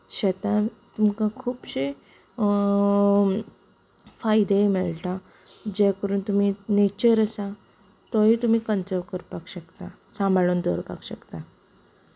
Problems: background conversations at intervals, low volume